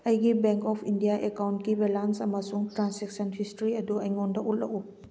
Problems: none marked